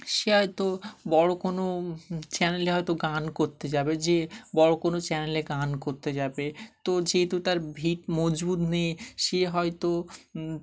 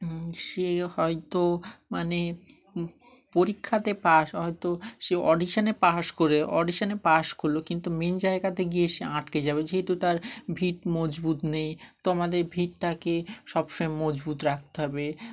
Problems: none marked